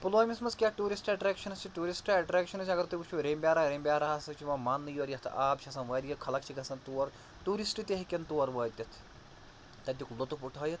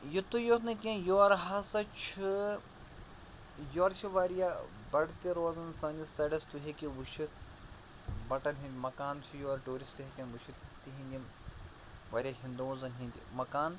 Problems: constant background noise